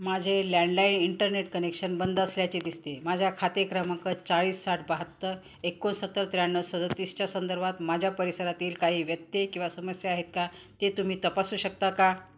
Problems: background sounds at intervals